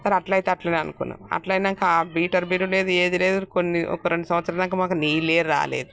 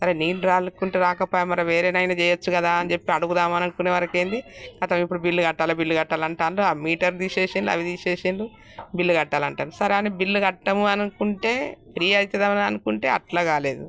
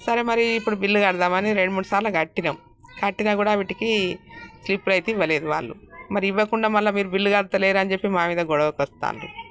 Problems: none marked